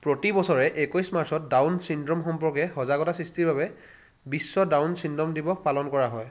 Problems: none marked